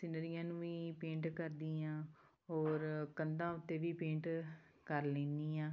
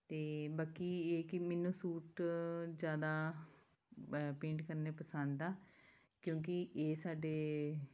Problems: background sounds at intervals